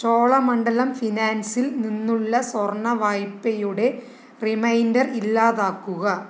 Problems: none marked